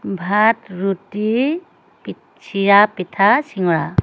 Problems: constant background noise